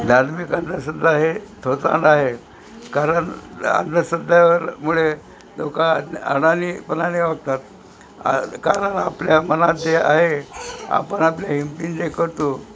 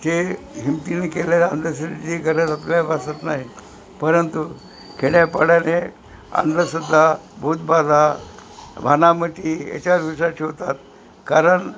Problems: constant background noise